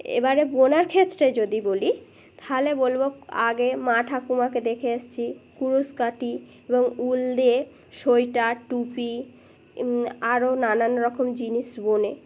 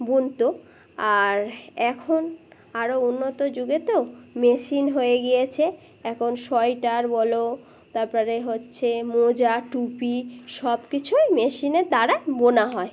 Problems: none marked